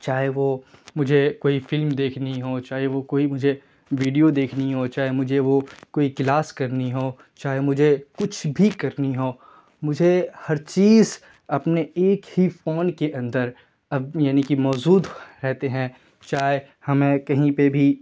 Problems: constant background noise